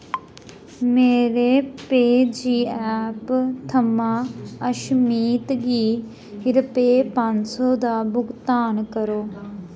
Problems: background sounds at intervals